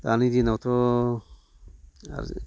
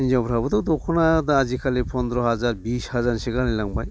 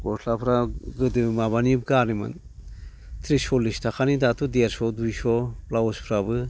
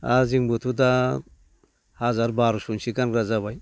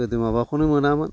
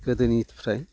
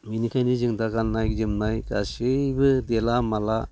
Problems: none marked